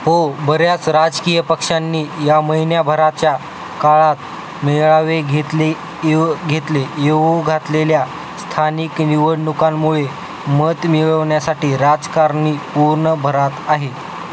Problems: constant background noise